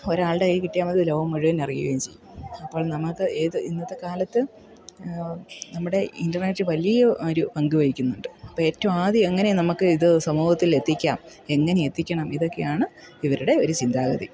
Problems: background sounds at intervals